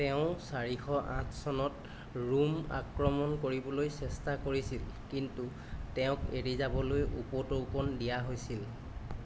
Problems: none marked